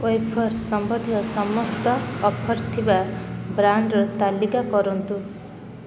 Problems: constant background noise